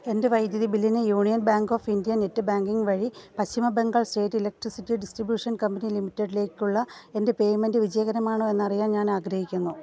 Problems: background conversations at intervals